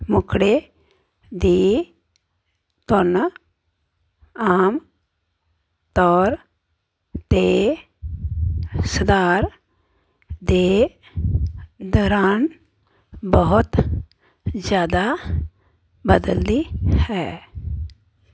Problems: none marked